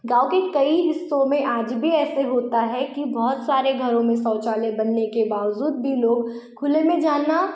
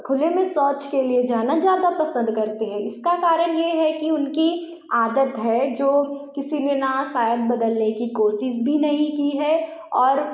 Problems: echo